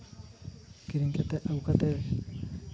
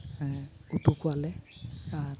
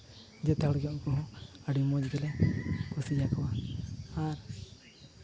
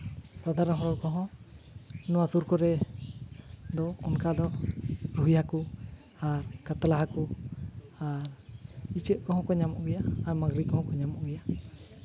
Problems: constant background noise